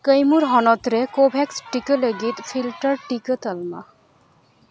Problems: background sounds at intervals